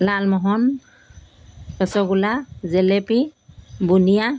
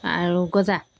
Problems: background sounds at intervals